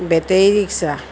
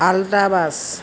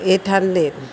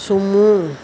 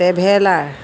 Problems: constant background noise